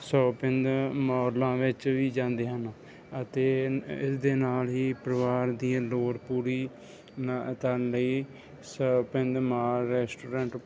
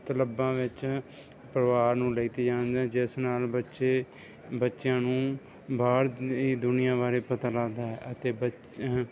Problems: none marked